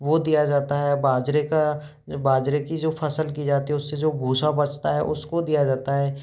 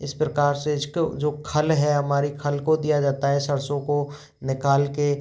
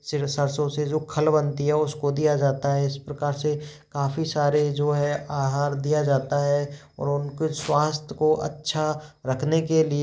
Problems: background sounds at intervals